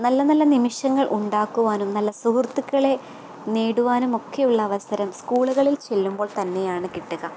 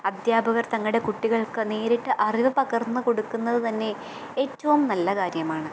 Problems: constant background noise